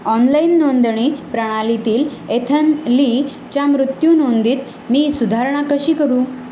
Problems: constant background noise